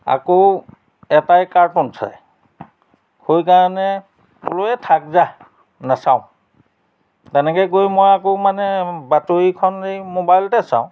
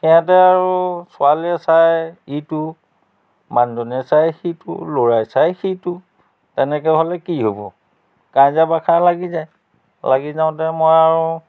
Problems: none marked